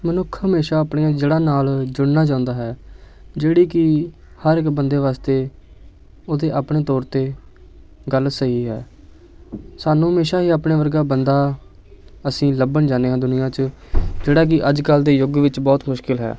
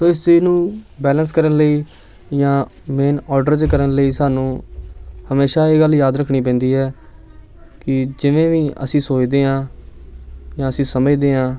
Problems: background sounds at intervals, background conversations at intervals